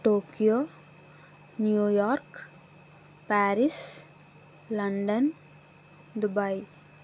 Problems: none marked